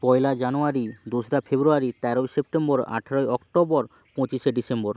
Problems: constant background noise